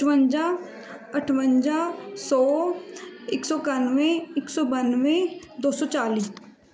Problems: continuous background conversations